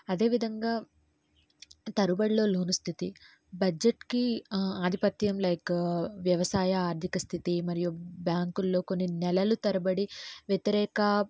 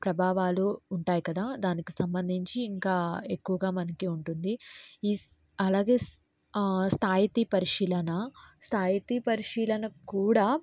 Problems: low volume